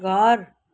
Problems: constant background noise